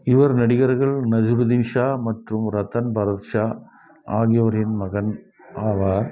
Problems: background conversations at intervals